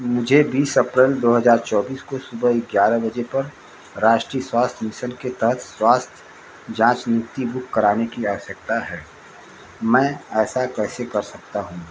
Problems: constant background noise